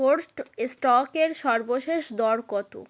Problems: background sounds at intervals